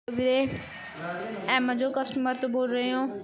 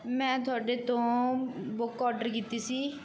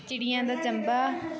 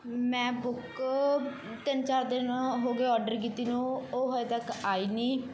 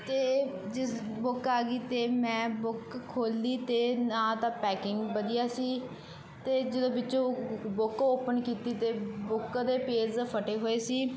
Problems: background sounds at intervals